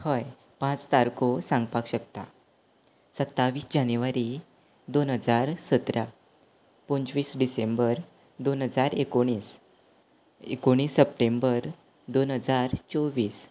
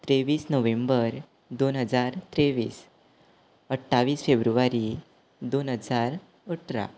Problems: background sounds at intervals